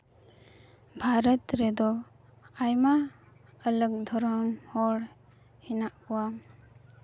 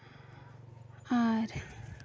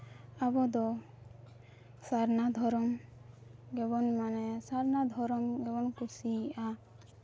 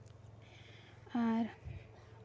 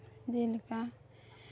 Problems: none marked